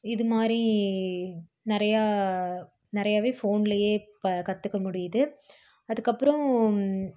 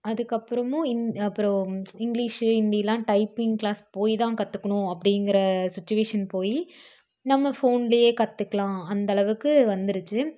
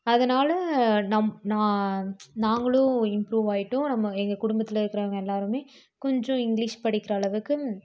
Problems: none marked